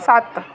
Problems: echo